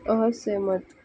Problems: background sounds at intervals